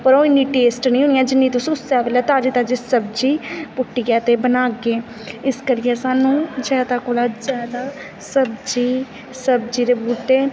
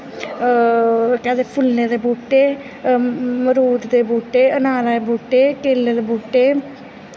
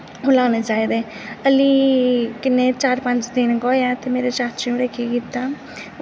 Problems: constant background noise, echo